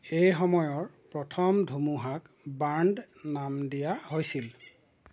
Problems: constant background noise